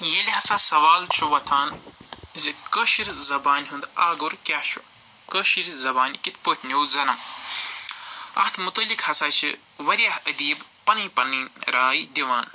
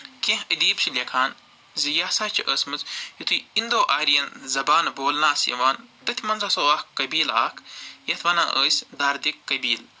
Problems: constant background noise